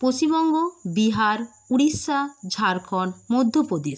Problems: none marked